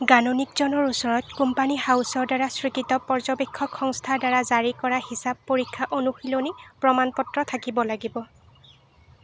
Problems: constant background noise